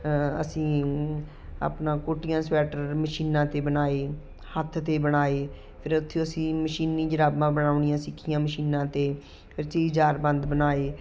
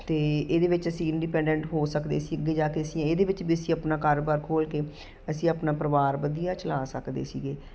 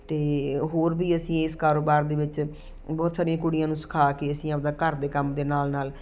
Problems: none marked